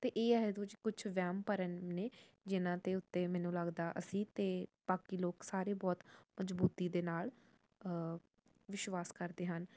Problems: none marked